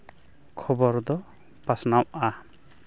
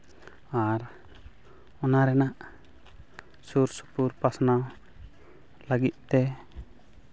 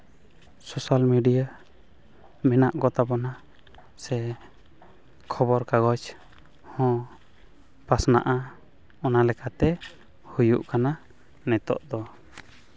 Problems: constant background noise, background conversations at intervals